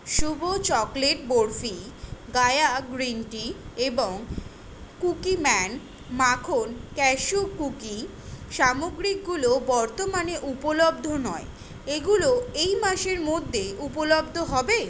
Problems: background sounds at intervals